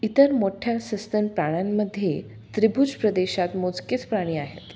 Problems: background sounds at intervals